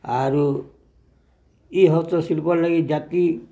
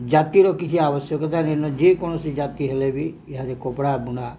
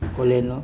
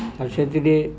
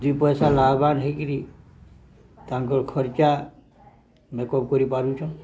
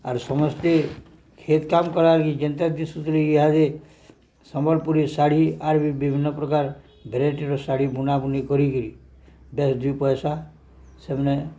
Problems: background sounds at intervals, low volume